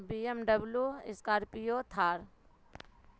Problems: constant background noise